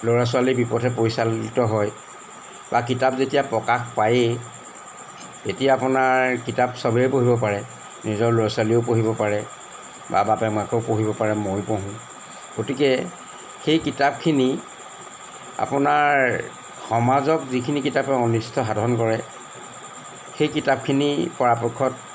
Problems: background sounds at intervals